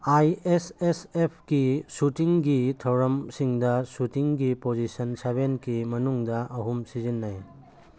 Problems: background sounds at intervals